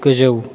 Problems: constant background noise